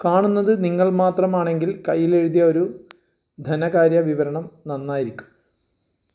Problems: none marked